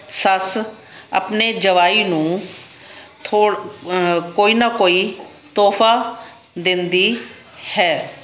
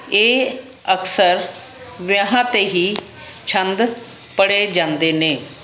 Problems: constant background noise